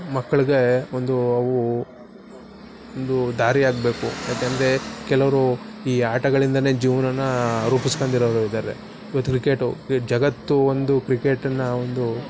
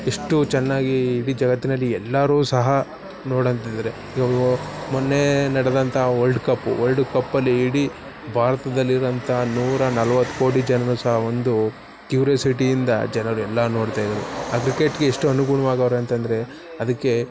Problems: background sounds at intervals